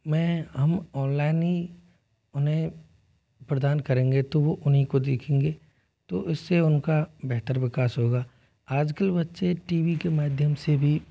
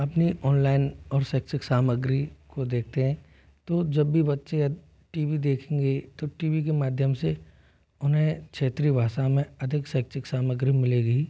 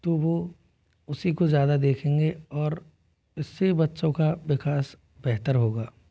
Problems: none marked